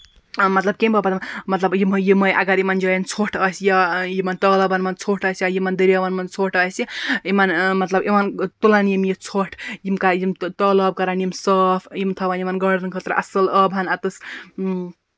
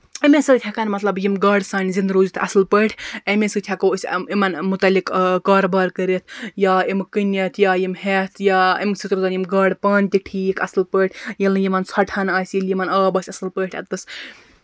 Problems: constant background noise